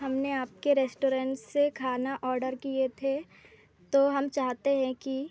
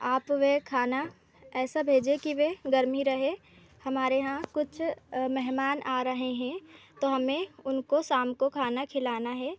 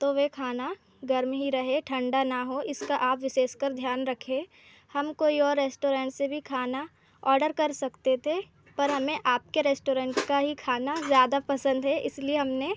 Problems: constant background noise